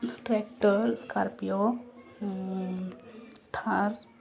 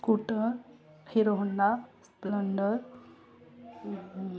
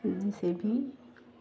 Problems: constant background noise, continuous background conversations